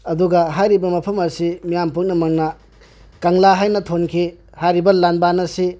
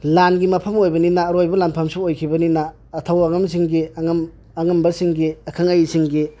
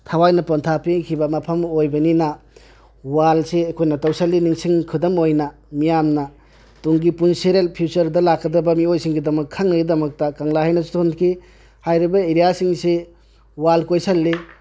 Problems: none marked